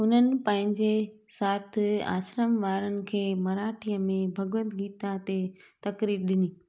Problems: none marked